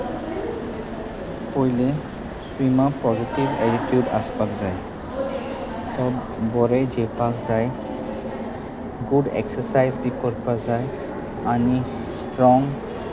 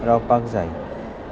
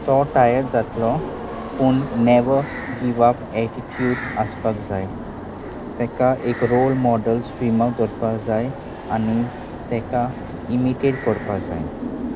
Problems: constant background noise, continuous background conversations